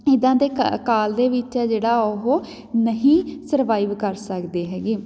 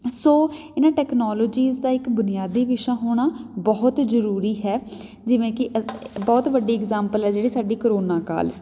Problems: background sounds at intervals